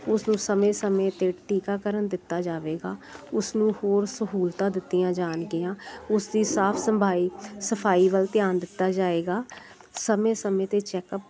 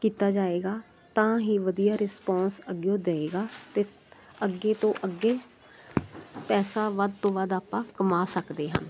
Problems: constant background noise